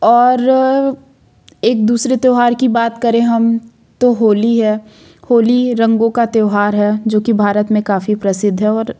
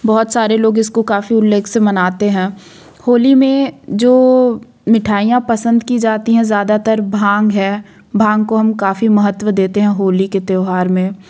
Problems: none marked